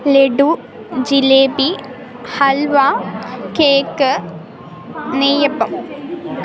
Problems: constant background noise